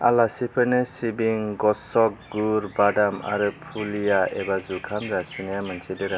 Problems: none marked